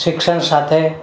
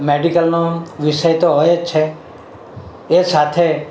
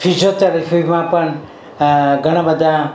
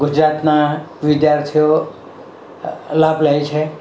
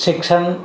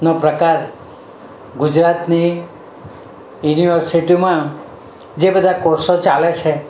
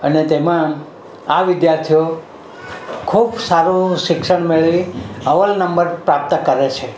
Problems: none marked